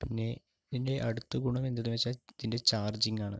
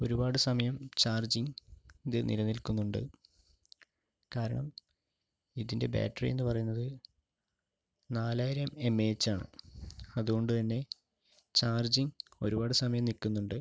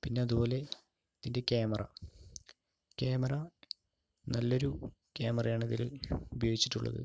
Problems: low volume